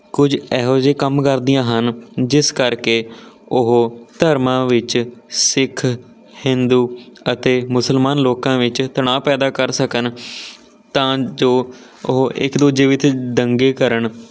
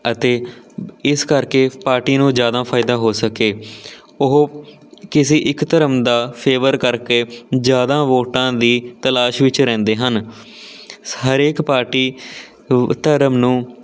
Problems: none marked